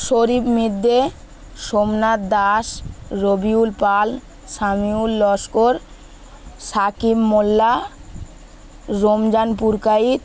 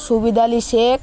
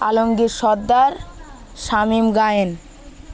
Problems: none marked